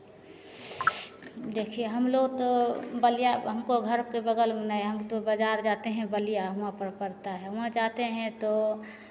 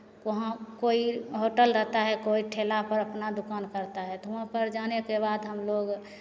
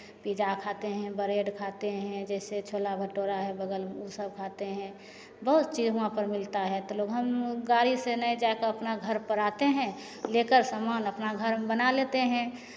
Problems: none marked